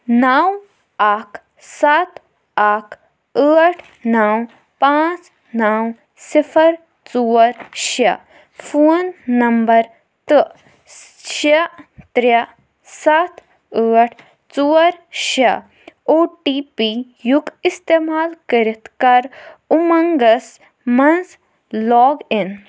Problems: none marked